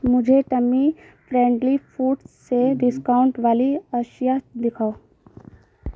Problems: constant background noise